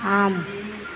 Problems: constant background noise